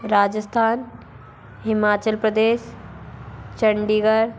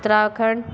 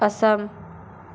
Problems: none marked